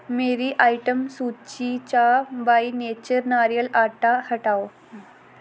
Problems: constant background noise